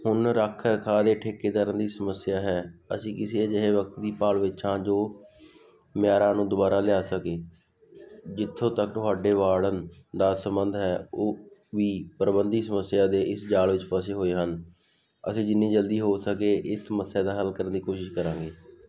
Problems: none marked